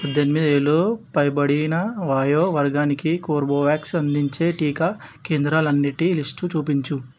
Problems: background sounds at intervals